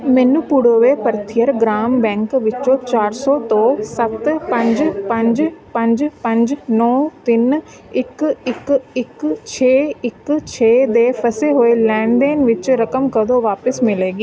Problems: continuous background conversations